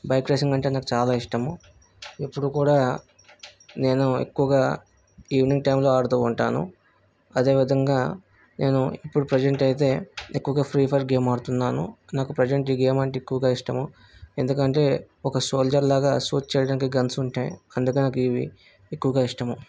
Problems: background sounds at intervals